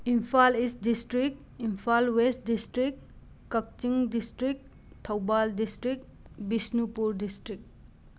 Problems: none marked